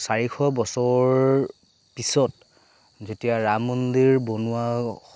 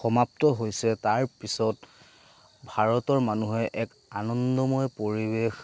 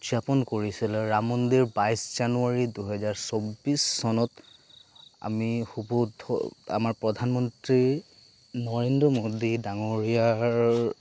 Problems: background sounds at intervals